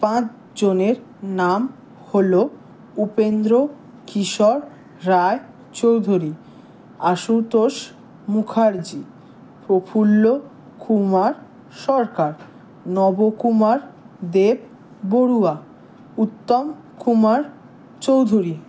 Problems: none marked